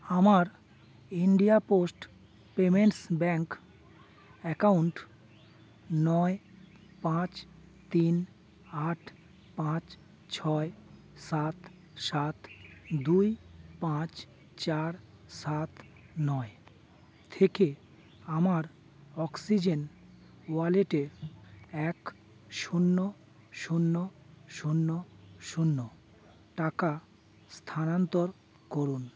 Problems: background sounds at intervals